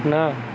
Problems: none marked